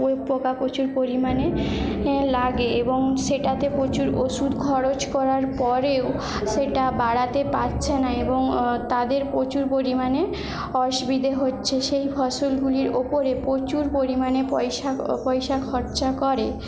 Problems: background conversations at intervals